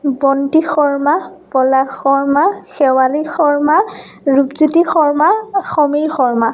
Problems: none marked